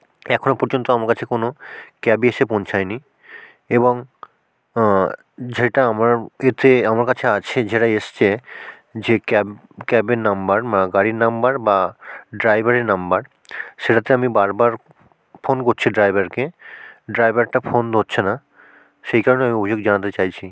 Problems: background sounds at intervals